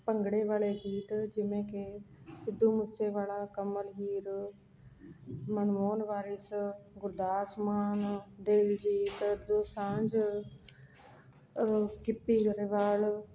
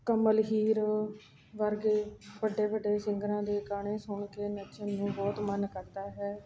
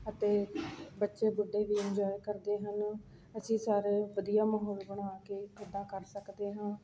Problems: none marked